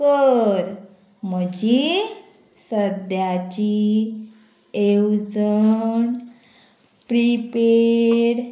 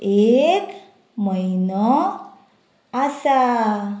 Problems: constant background noise